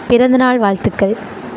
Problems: none marked